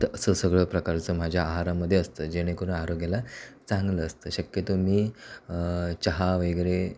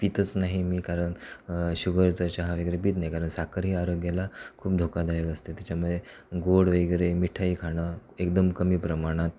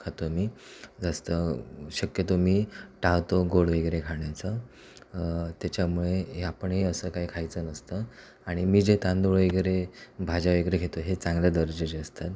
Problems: none marked